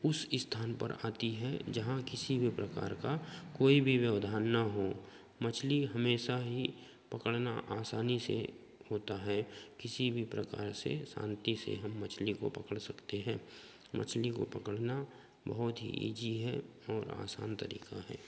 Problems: constant background noise